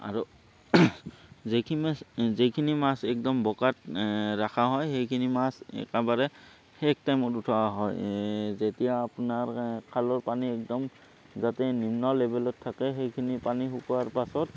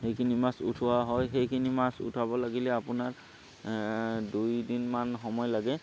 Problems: constant background noise